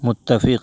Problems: none marked